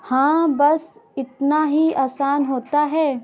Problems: none marked